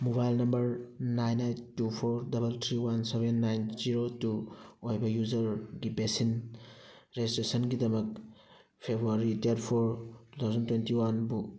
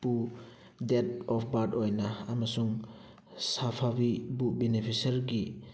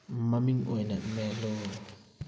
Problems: background sounds at intervals